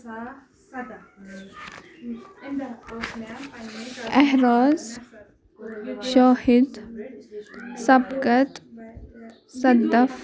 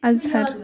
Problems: background conversations at intervals